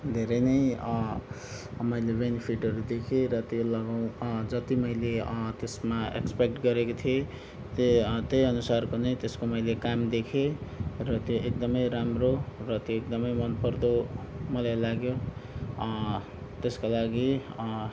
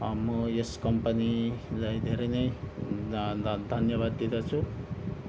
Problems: background sounds at intervals